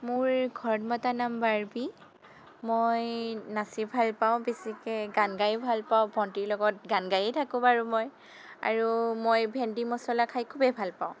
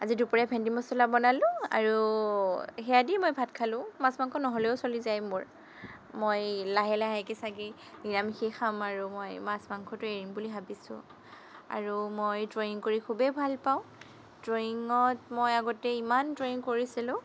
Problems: constant background noise